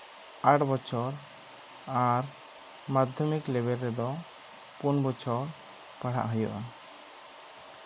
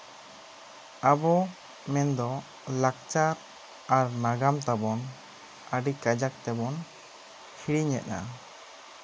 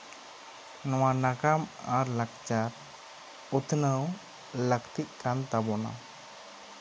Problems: constant background noise